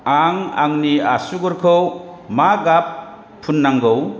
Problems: none marked